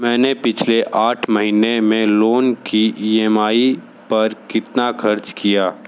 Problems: background sounds at intervals